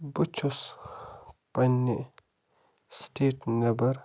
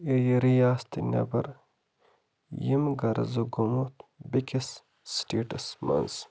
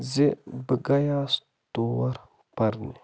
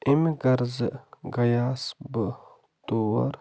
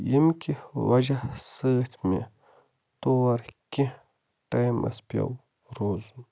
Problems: constant background noise